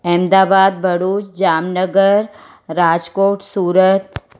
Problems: none marked